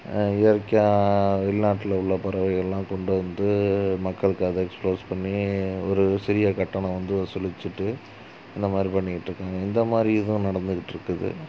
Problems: constant background noise